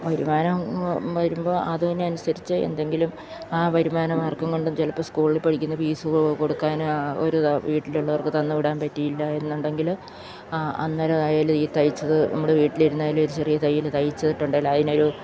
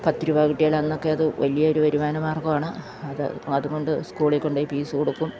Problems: none marked